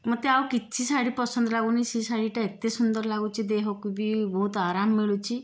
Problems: background sounds at intervals